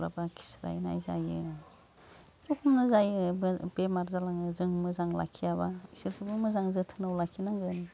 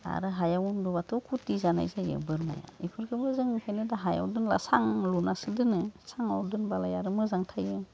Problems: constant background noise